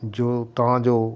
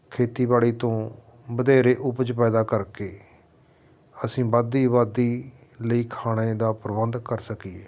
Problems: constant background noise